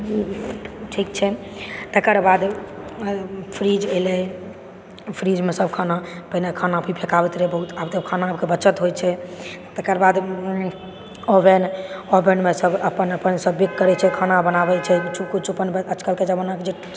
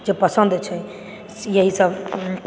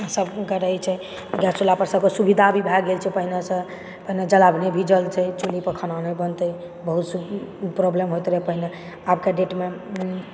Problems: background sounds at intervals